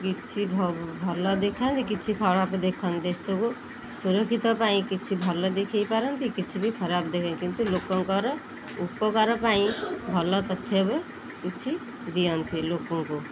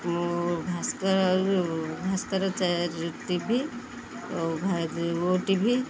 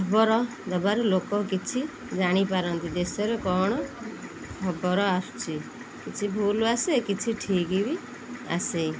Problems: constant background noise